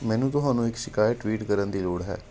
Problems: background sounds at intervals